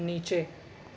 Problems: none marked